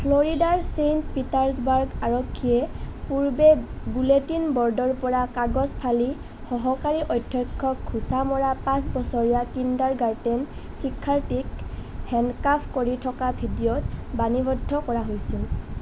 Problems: none marked